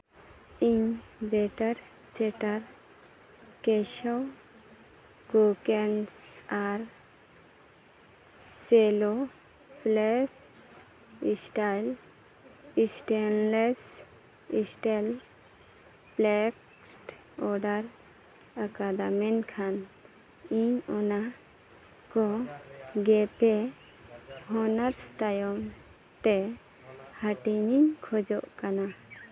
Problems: constant background noise, background conversations at intervals